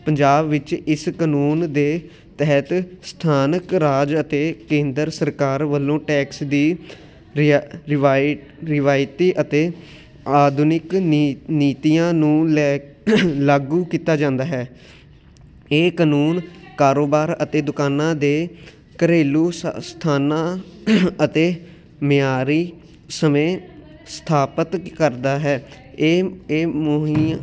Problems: continuous background conversations